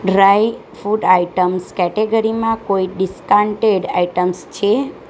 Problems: none marked